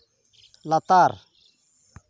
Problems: background sounds at intervals